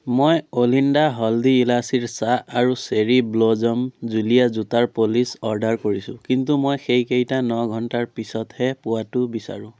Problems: none marked